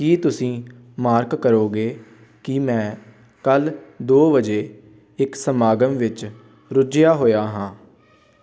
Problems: background sounds at intervals, background conversations at intervals